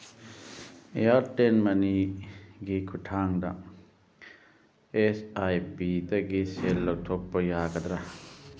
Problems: background sounds at intervals